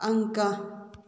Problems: none marked